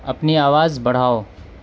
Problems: constant background noise